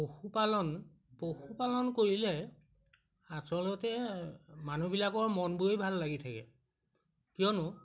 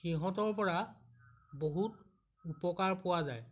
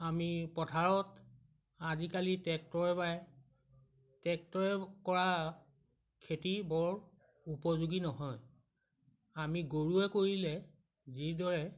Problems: background sounds at intervals